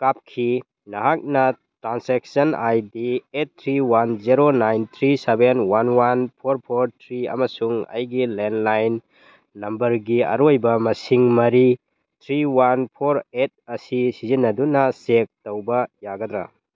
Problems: background sounds at intervals